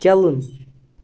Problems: none marked